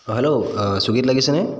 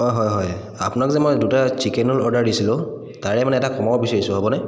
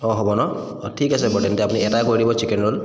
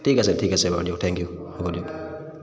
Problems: constant background noise, echo